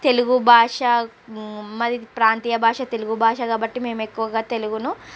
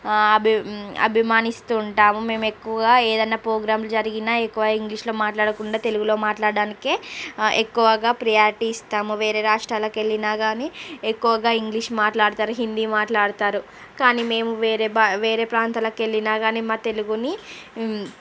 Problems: none marked